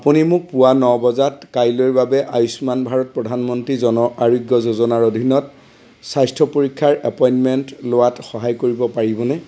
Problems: constant background noise